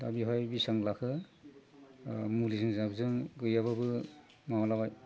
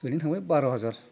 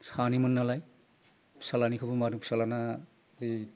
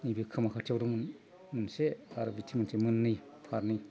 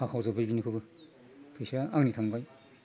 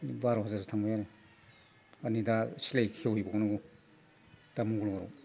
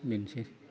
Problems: constant background noise